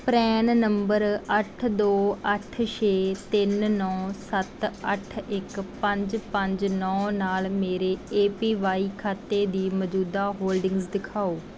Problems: background sounds at intervals